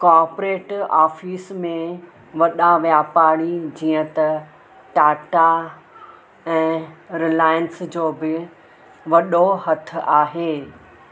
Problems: constant background noise